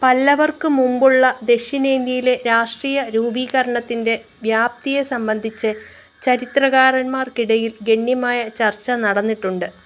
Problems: background sounds at intervals